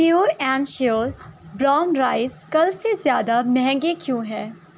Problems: none marked